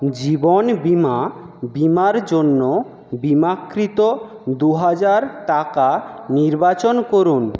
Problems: none marked